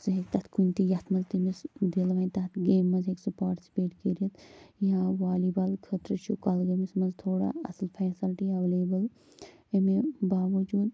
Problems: low volume